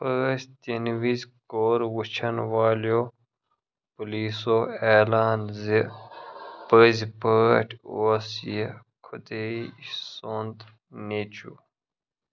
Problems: background sounds at intervals